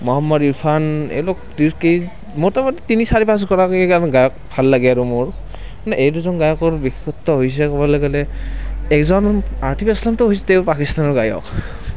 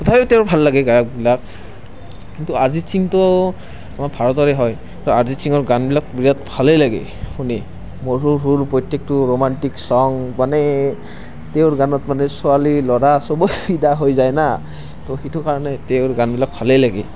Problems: constant background noise